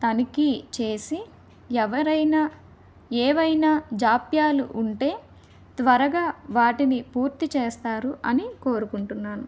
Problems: none marked